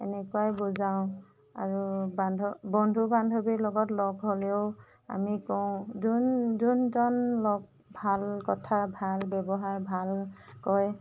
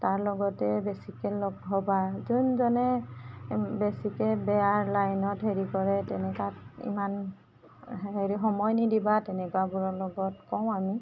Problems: background sounds at intervals